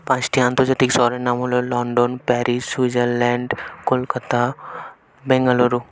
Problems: background conversations at intervals